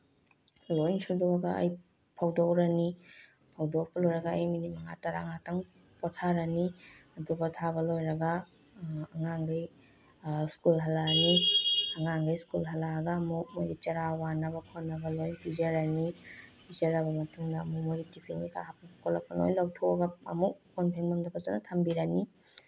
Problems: low volume